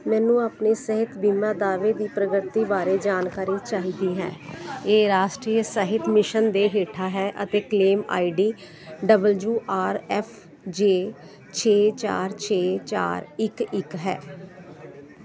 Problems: constant background noise